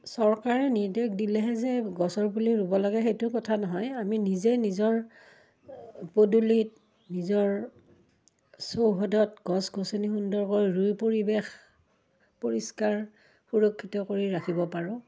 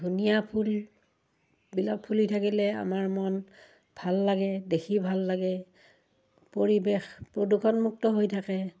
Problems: none marked